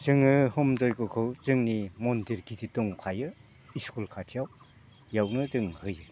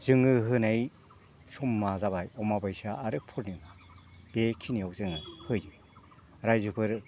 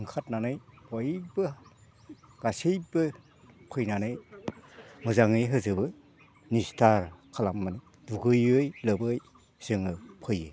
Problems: background conversations at intervals